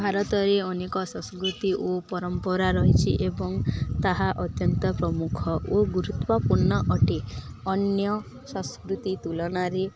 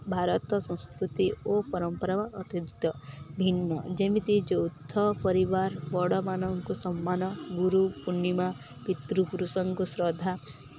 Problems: none marked